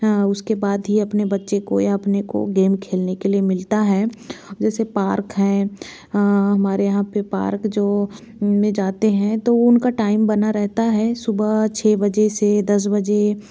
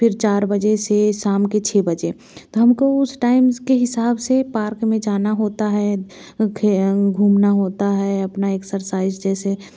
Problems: none marked